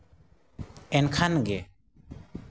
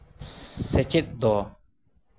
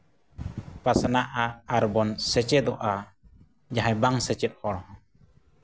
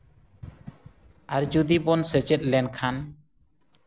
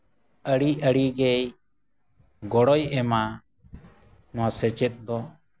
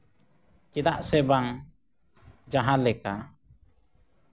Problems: none marked